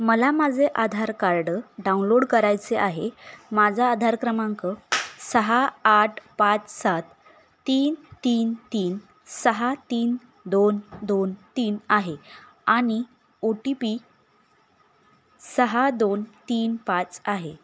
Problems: constant background noise